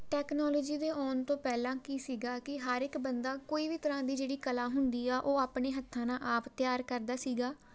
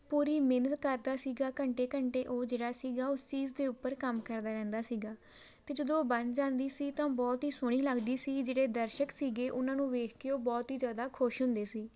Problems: background sounds at intervals